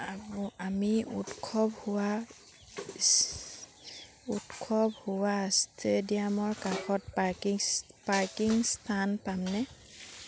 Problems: none marked